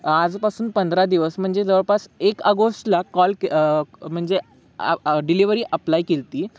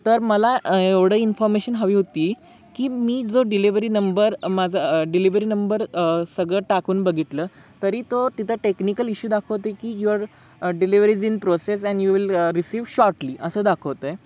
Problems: background sounds at intervals